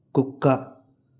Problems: none marked